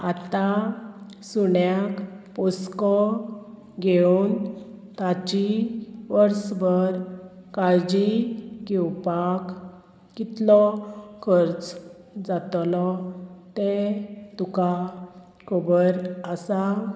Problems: constant background noise